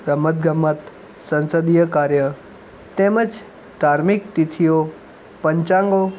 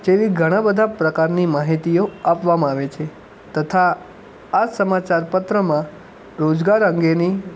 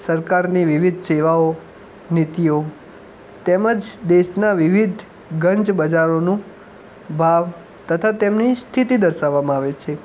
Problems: background sounds at intervals